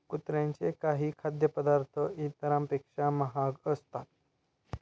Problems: background sounds at intervals